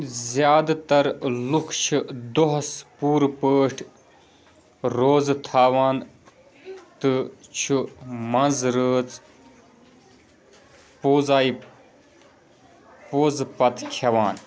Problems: background sounds at intervals, background conversations at intervals